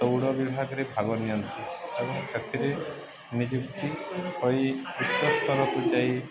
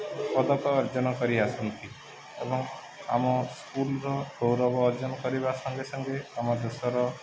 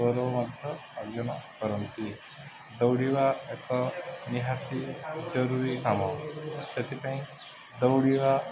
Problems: constant background noise, continuous background conversations